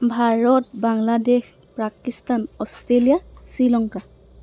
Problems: none marked